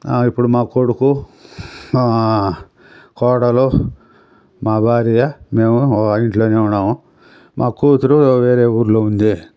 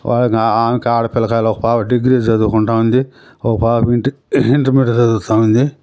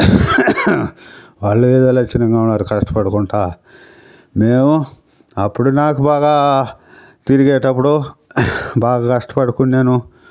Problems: none marked